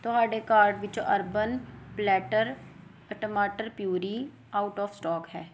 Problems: background sounds at intervals